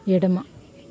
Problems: constant background noise